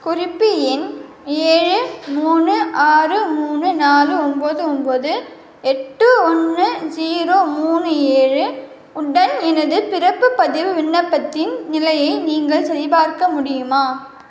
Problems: constant background noise